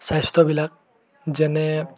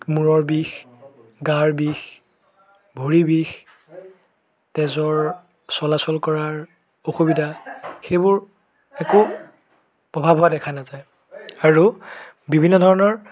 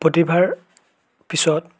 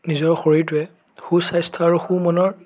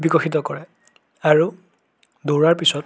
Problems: continuous background conversations